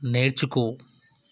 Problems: none marked